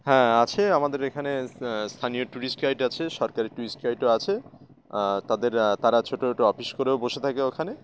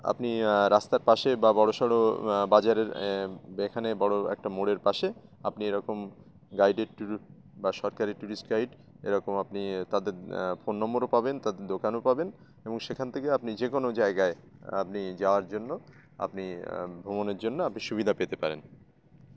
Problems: constant background noise